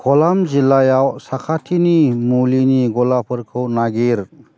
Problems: constant background noise